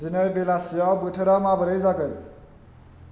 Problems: constant background noise